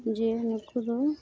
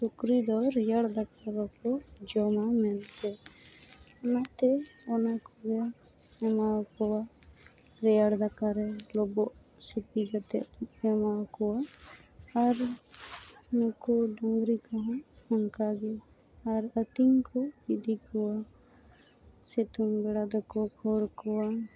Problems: none marked